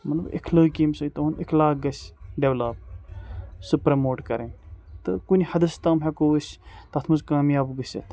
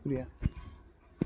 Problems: background sounds at intervals, background conversations at intervals